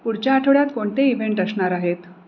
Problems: constant background noise